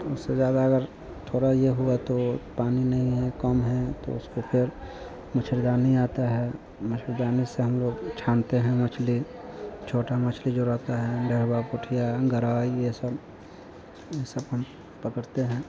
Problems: none marked